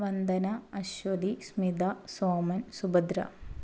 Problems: low volume